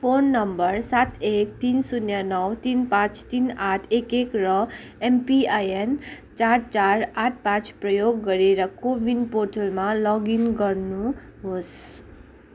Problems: none marked